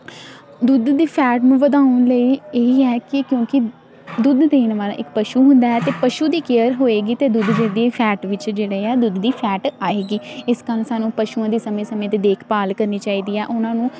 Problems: constant background noise